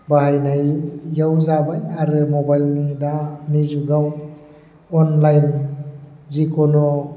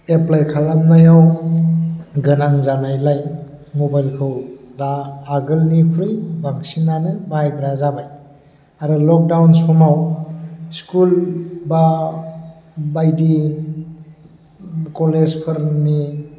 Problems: low volume